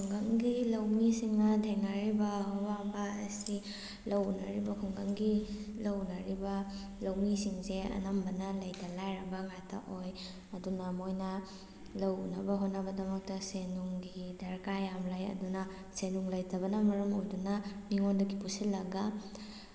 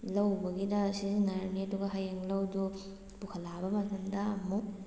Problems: none marked